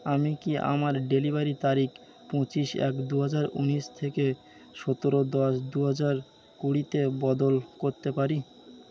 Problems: constant background noise